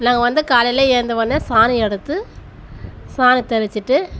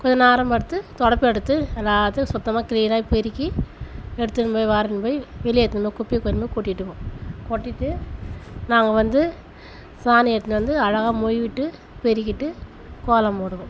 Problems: background sounds at intervals